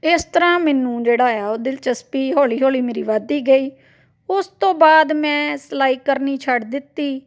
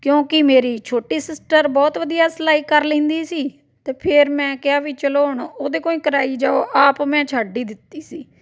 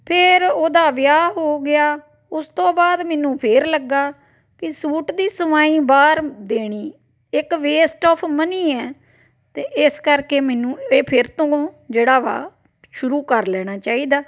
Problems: background sounds at intervals